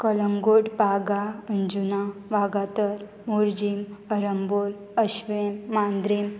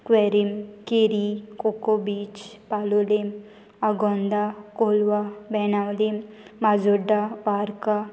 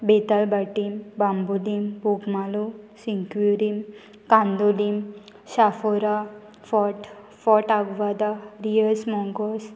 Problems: none marked